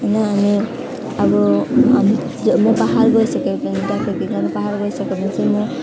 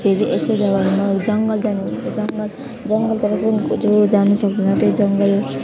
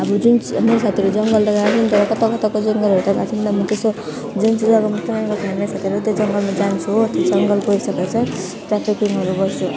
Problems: constant background noise, background conversations at intervals, low volume